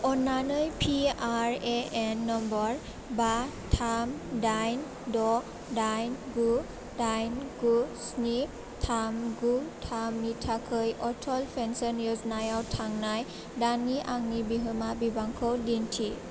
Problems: constant background noise